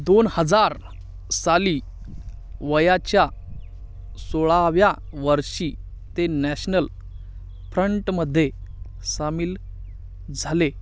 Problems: none marked